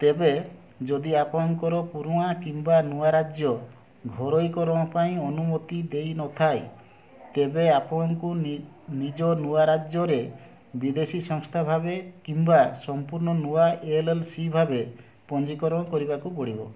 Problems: none marked